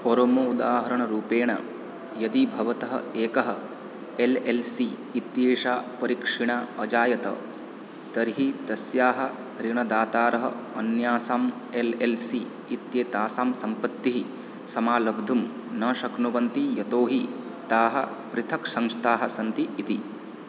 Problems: none marked